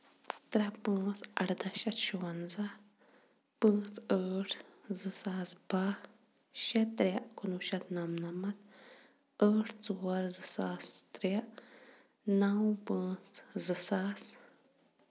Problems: constant background noise